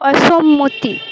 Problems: constant background noise